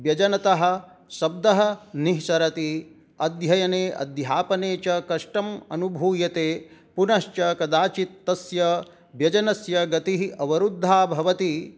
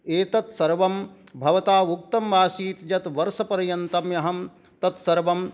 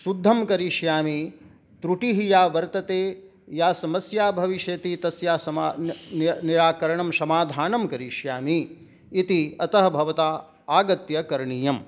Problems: none marked